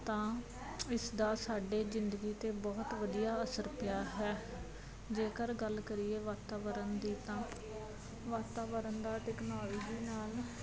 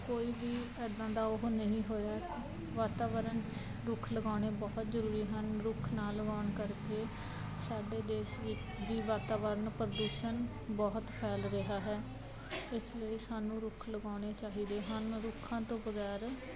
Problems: none marked